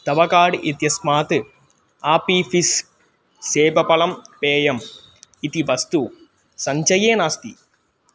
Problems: none marked